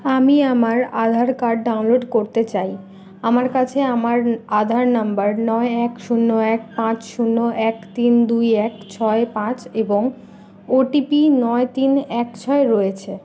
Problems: constant background noise